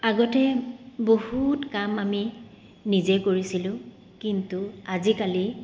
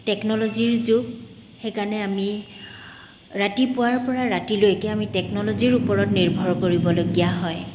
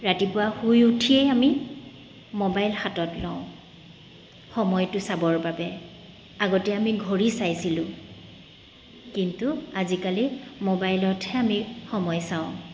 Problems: background sounds at intervals